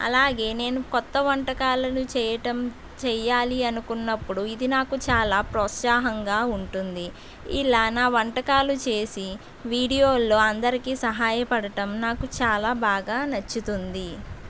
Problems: none marked